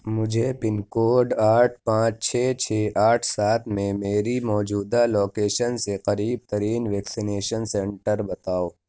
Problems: none marked